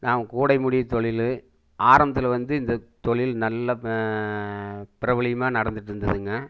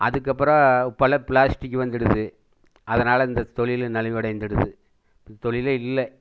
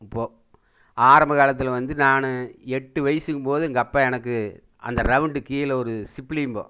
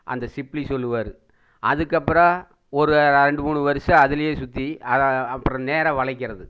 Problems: none marked